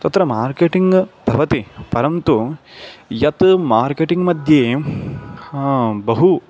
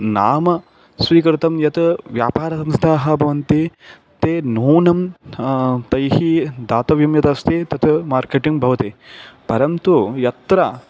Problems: constant background noise